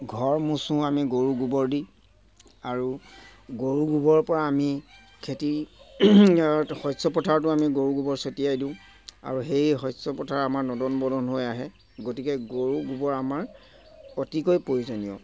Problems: constant background noise